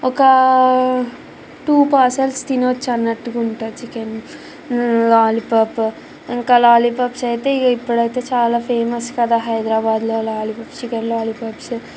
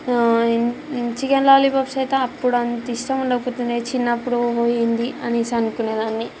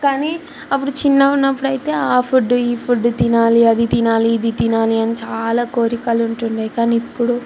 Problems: constant background noise